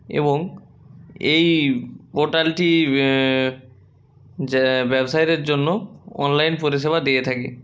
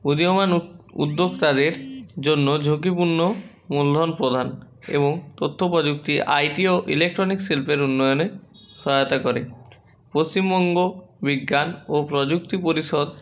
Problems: constant background noise, background conversations at intervals